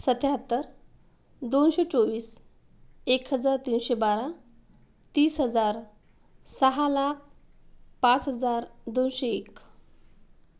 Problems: background sounds at intervals